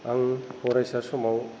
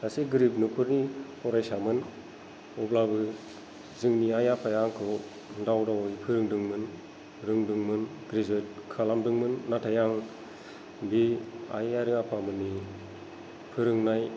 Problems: low volume